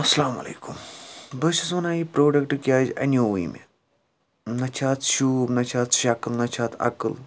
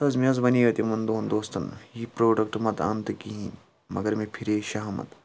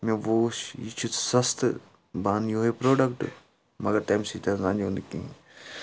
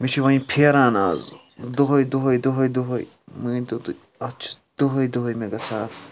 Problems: background sounds at intervals, background conversations at intervals